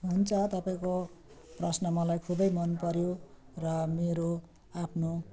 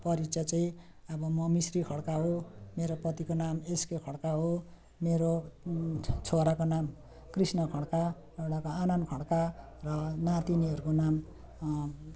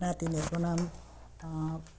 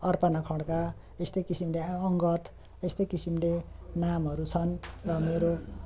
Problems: none marked